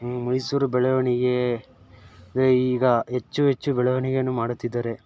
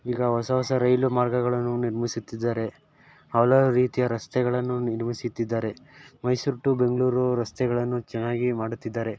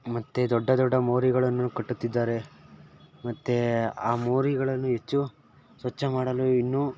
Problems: background sounds at intervals